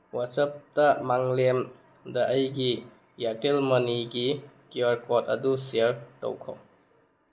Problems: background sounds at intervals